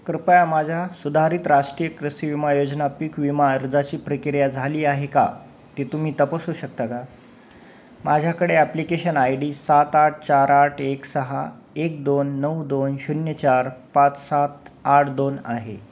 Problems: none marked